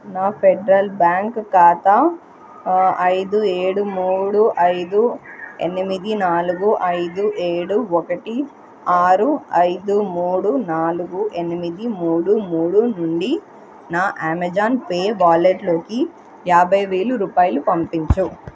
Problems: none marked